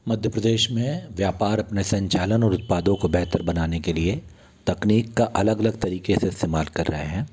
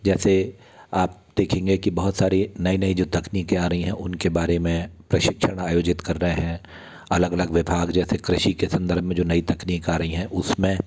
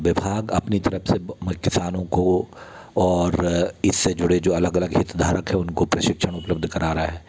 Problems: background sounds at intervals